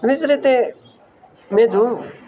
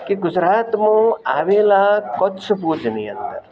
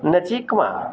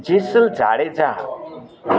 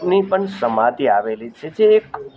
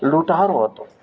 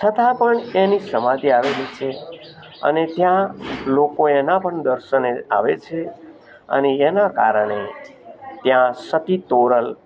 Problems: none marked